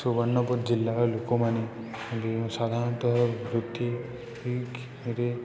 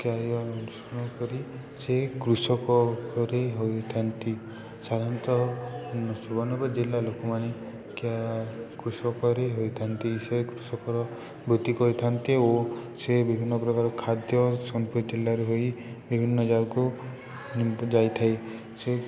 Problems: none marked